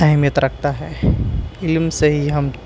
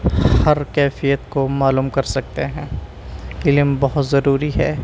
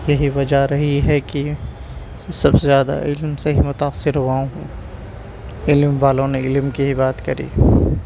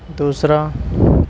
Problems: constant background noise